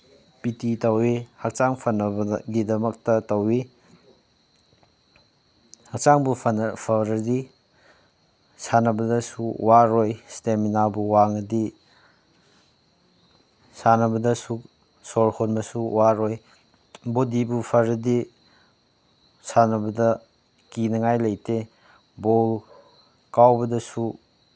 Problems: none marked